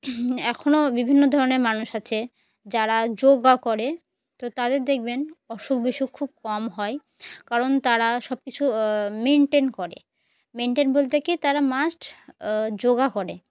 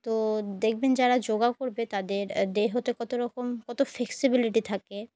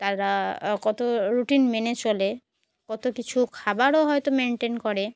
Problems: background sounds at intervals